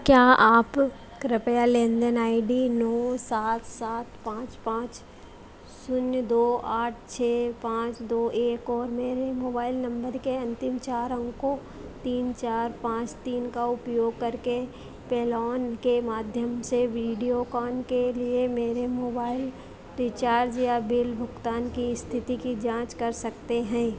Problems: constant background noise